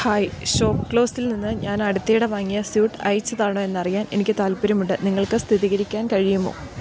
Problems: constant background noise